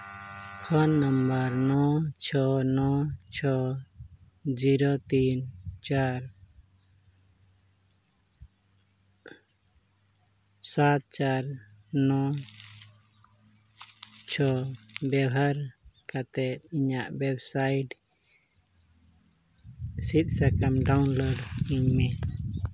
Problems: constant background noise